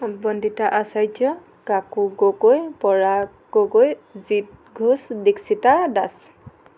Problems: none marked